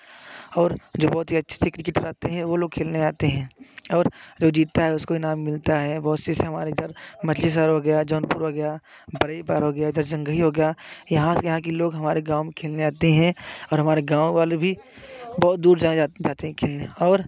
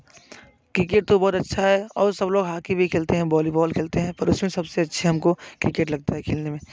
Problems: constant background noise